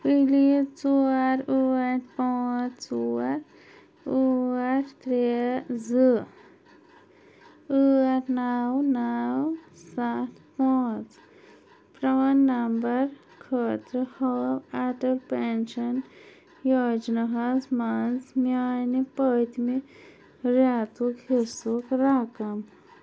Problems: none marked